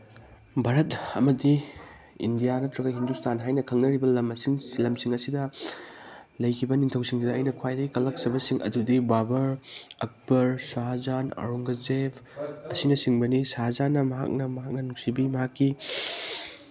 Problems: background sounds at intervals